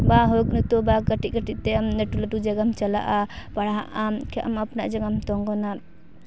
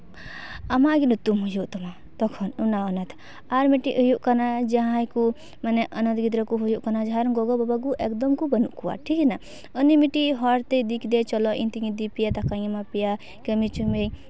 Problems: background sounds at intervals